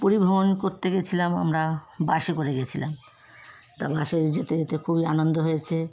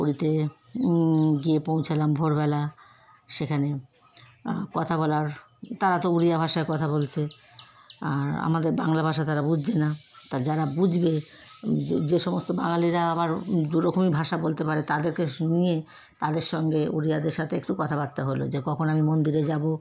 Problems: constant background noise, background conversations at intervals